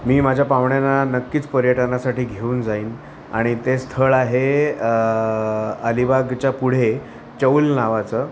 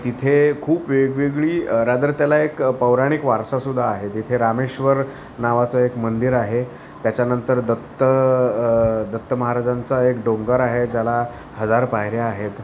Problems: constant background noise, continuous background conversations